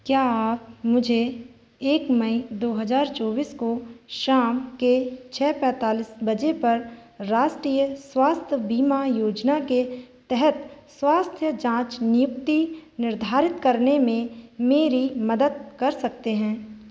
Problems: background sounds at intervals